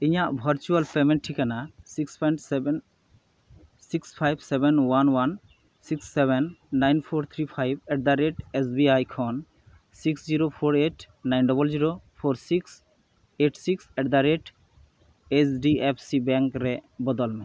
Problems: none marked